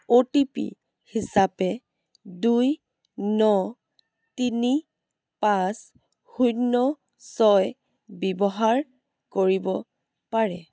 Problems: background sounds at intervals